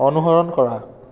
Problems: continuous background conversations